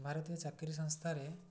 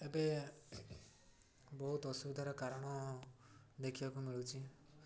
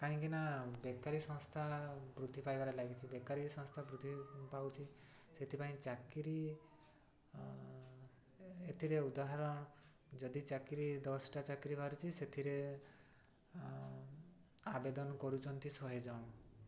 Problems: none marked